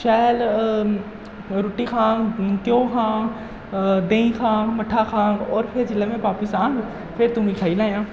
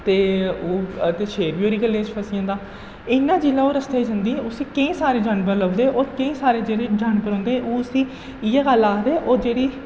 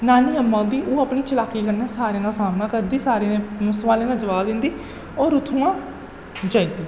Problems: echo, low volume